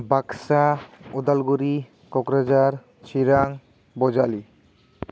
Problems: constant background noise